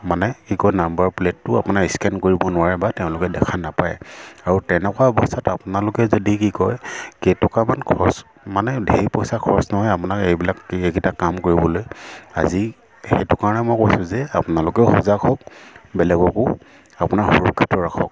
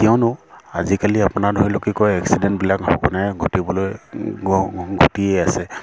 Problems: constant background noise